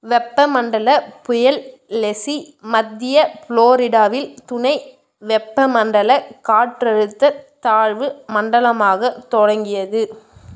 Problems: none marked